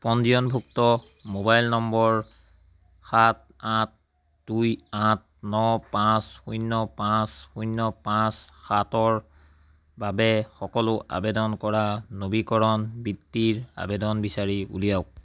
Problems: constant background noise